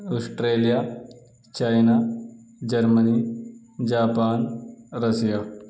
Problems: none marked